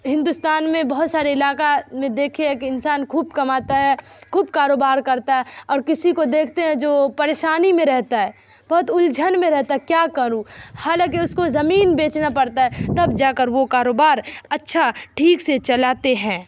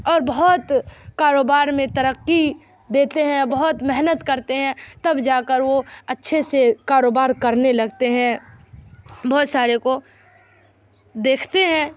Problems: background sounds at intervals